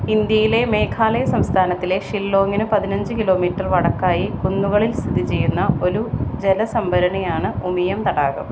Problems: constant background noise